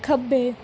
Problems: background sounds at intervals